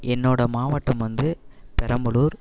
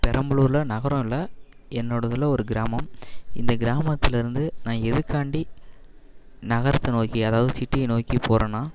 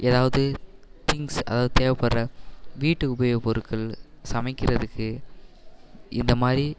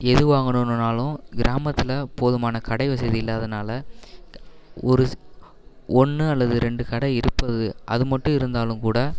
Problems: none marked